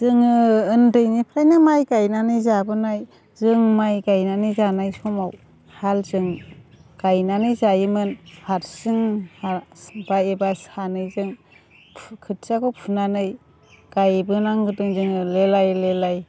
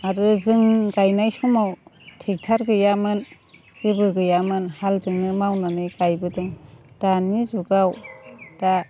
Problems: none marked